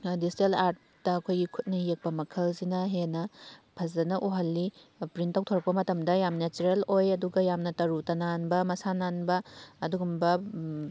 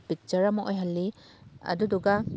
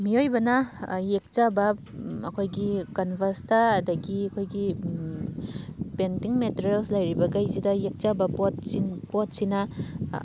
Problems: none marked